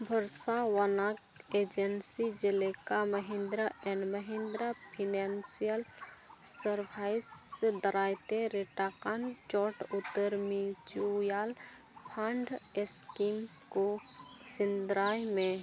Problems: constant background noise